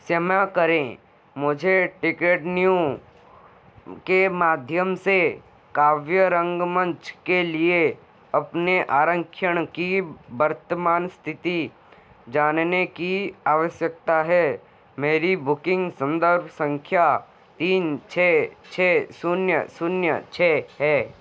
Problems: constant background noise